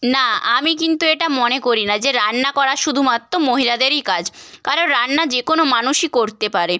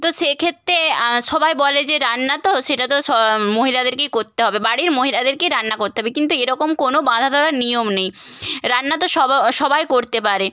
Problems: background sounds at intervals